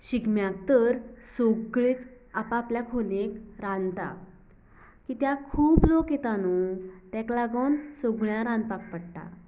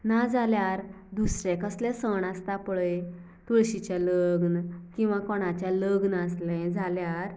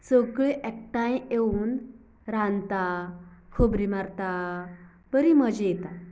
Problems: none marked